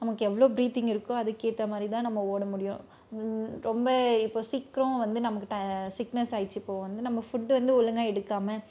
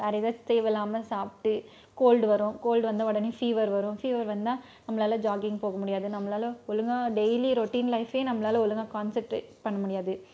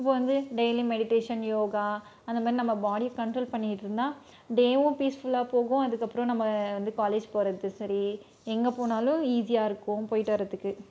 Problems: none marked